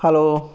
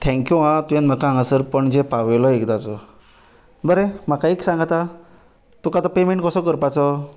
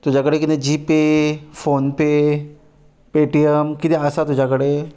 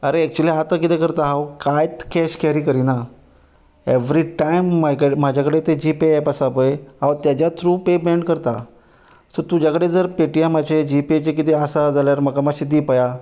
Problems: none marked